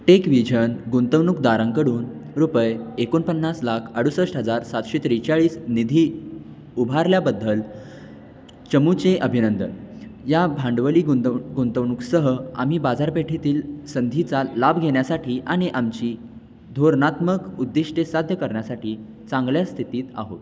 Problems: none marked